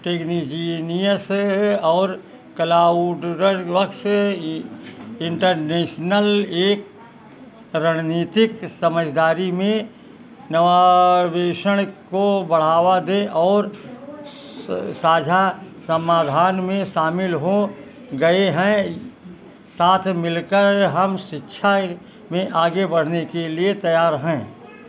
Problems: background sounds at intervals